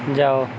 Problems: constant background noise